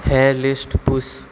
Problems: constant background noise